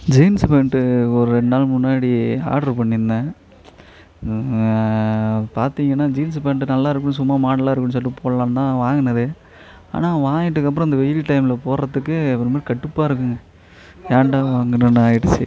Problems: background conversations at intervals